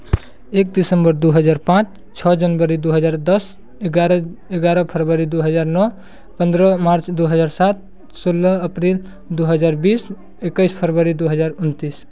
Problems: constant background noise